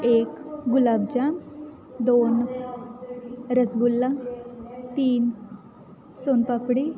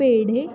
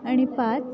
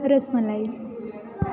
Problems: constant background noise, continuous background conversations